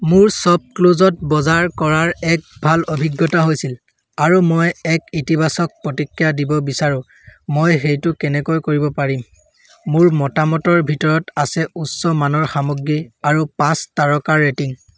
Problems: none marked